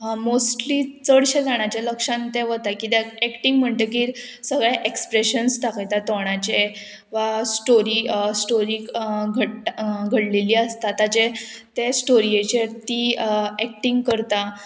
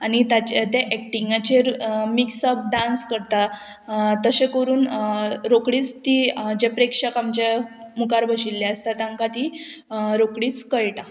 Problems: none marked